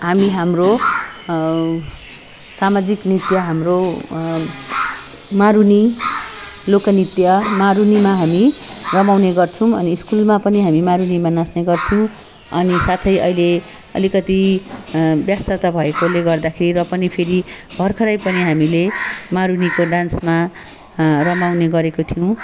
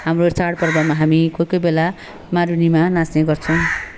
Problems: constant background noise